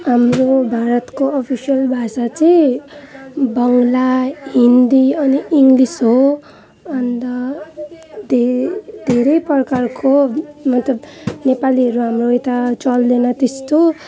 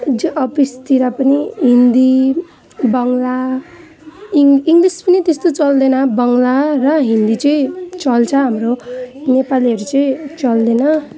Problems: constant background noise, continuous background conversations